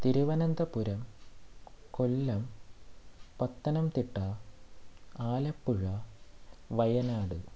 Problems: background sounds at intervals, low volume